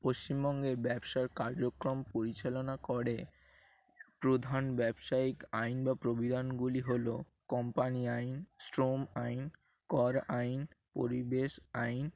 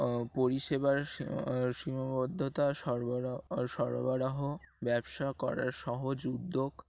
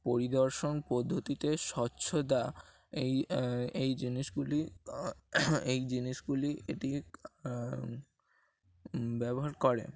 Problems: constant background noise